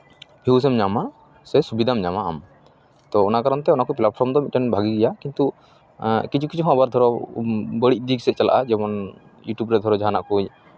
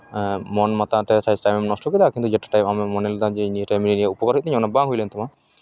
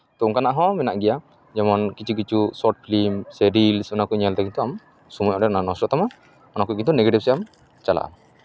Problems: none marked